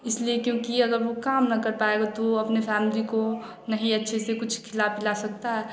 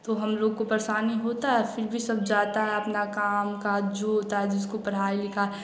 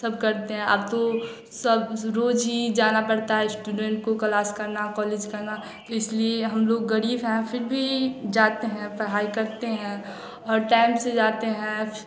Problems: none marked